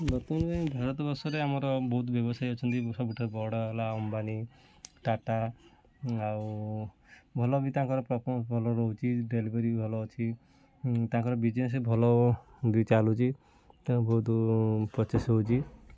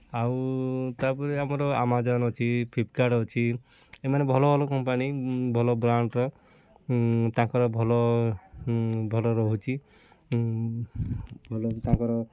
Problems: constant background noise, continuous background conversations